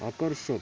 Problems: none marked